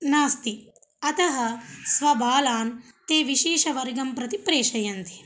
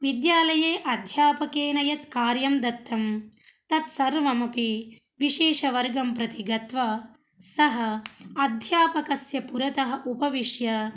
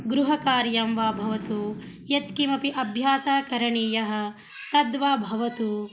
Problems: none marked